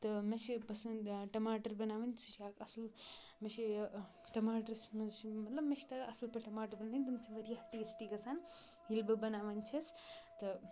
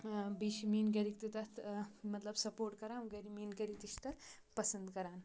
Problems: none marked